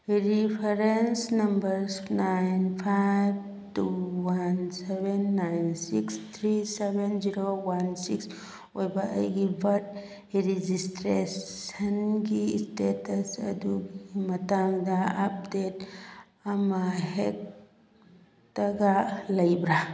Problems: background sounds at intervals